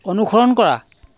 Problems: background sounds at intervals